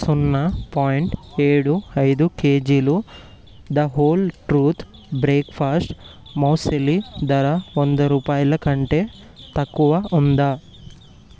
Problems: none marked